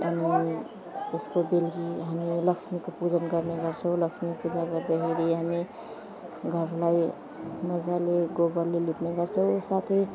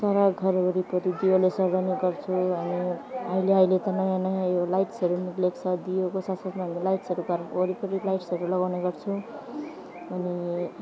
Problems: constant background noise, background conversations at intervals, low volume